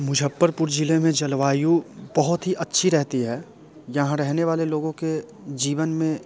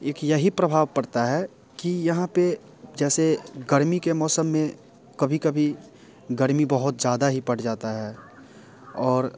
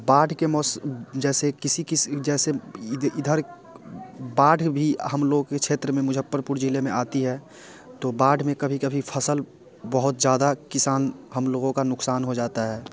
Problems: constant background noise, continuous background conversations